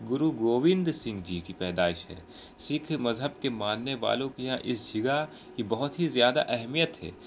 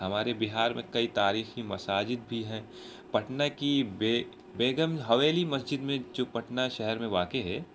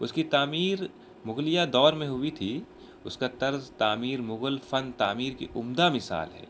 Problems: constant background noise